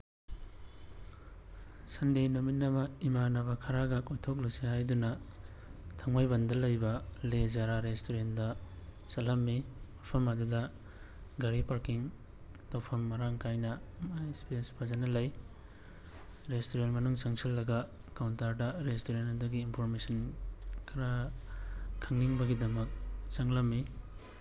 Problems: constant background noise